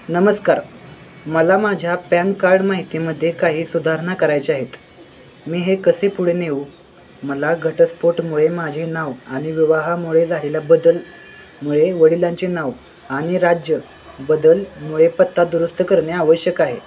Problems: constant background noise, continuous background conversations